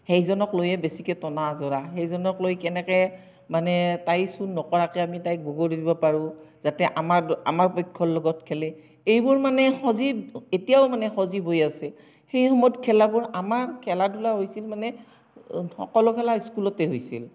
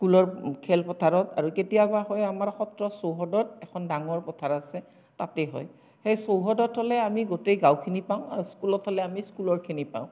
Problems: none marked